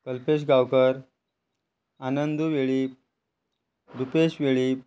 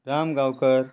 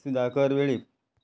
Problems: constant background noise